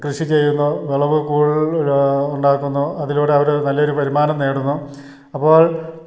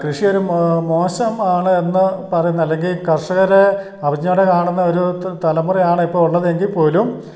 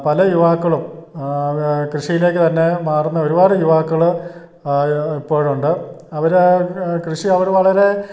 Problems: none marked